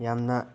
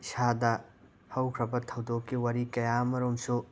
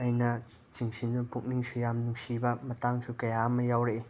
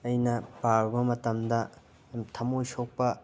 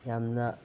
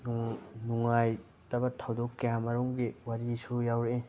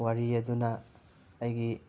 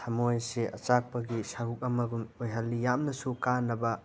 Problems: constant background noise